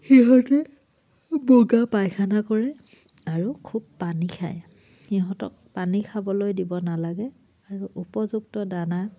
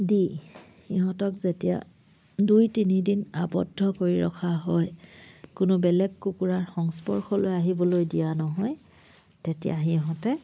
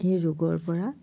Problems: low volume